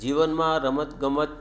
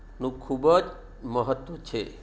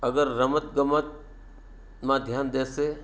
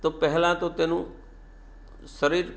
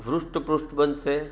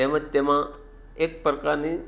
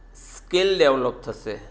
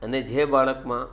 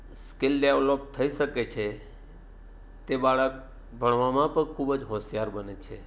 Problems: background sounds at intervals